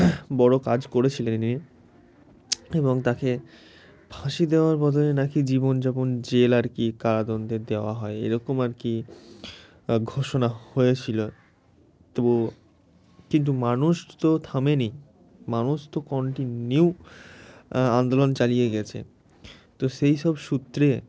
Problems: constant background noise